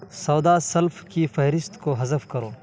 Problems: constant background noise